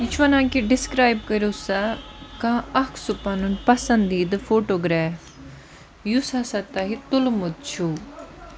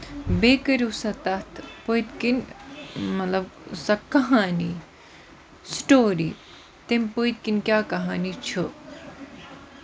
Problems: constant background noise